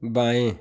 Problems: background sounds at intervals